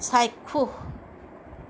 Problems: none marked